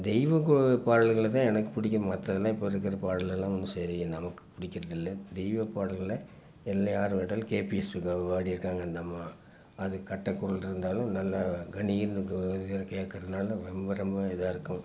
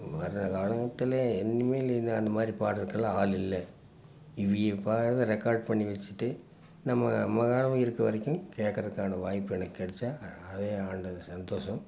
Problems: background sounds at intervals